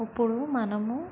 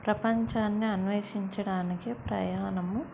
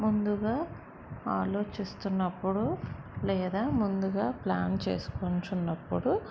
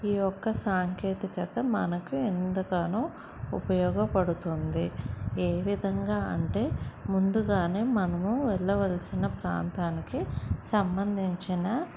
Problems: none marked